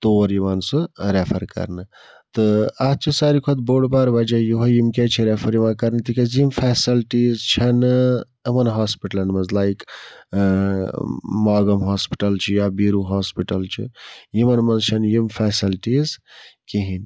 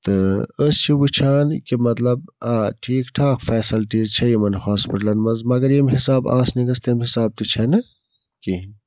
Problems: background sounds at intervals